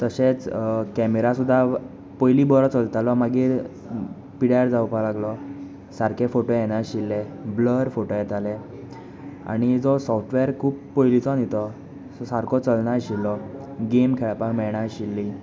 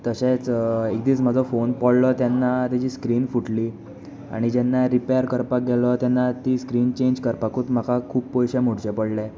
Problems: none marked